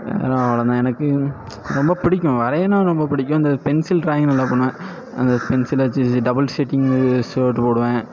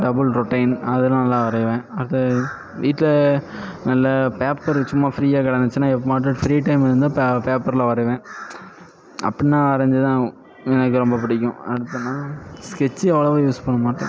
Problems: background sounds at intervals